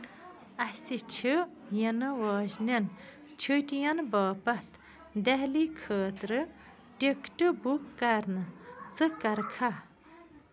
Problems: none marked